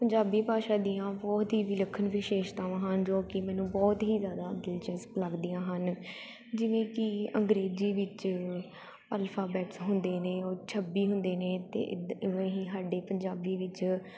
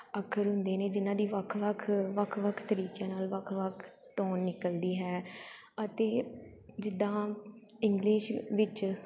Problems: none marked